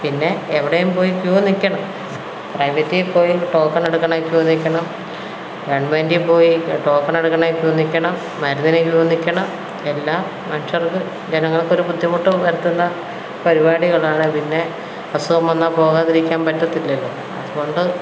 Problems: none marked